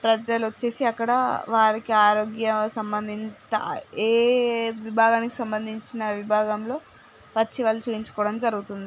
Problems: background sounds at intervals